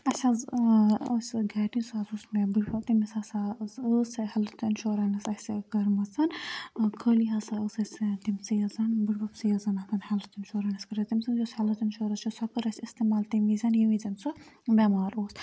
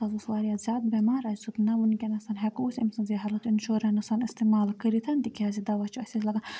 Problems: background sounds at intervals, low volume